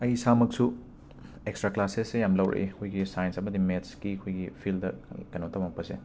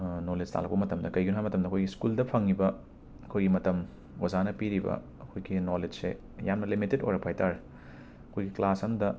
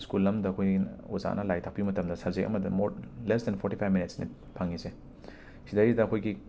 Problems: constant background noise